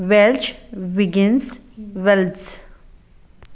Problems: background sounds at intervals